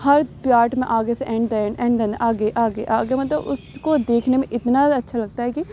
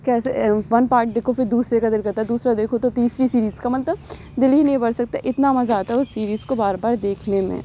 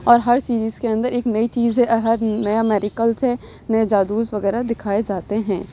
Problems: none marked